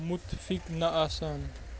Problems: constant background noise